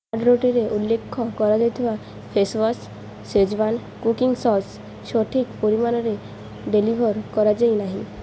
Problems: none marked